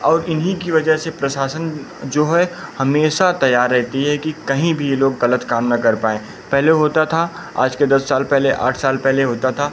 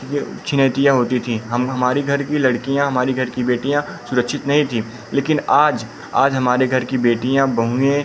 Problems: none marked